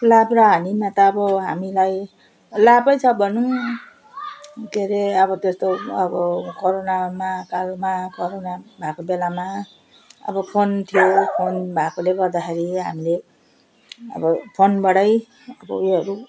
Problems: constant background noise